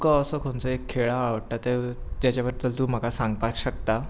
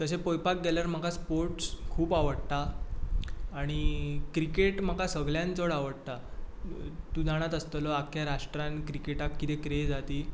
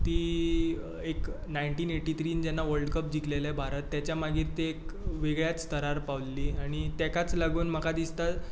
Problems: none marked